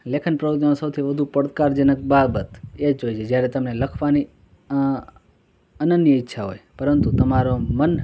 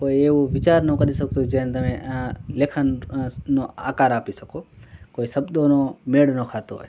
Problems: constant background noise